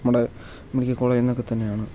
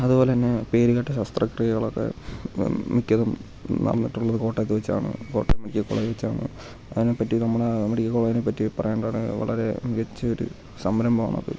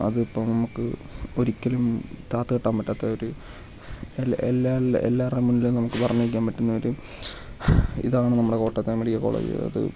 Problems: low volume